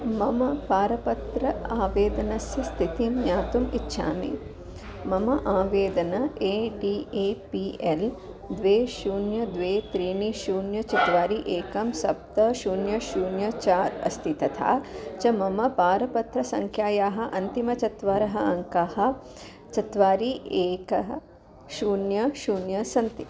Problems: none marked